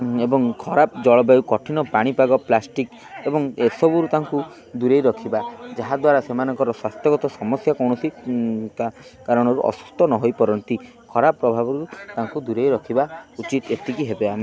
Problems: constant background noise